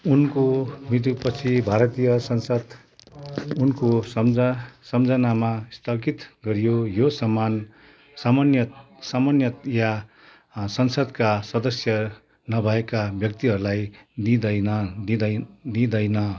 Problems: continuous background conversations